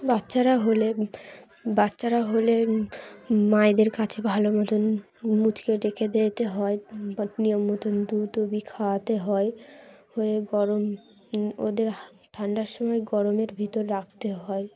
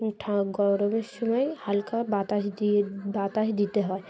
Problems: constant background noise, background conversations at intervals